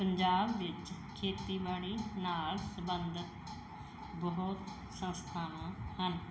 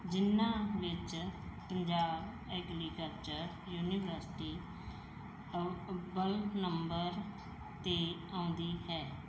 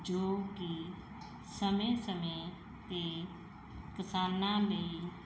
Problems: background sounds at intervals